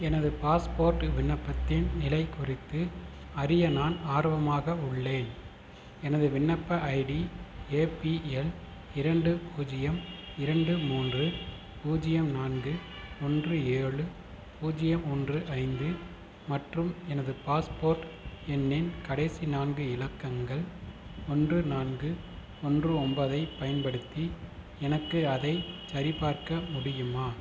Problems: constant background noise